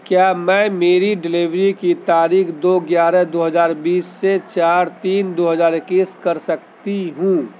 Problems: constant background noise, background conversations at intervals